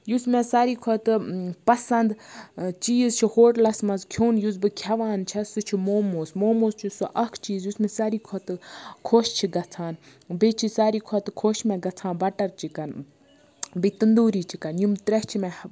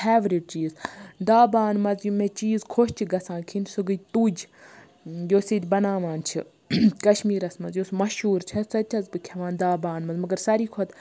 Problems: background sounds at intervals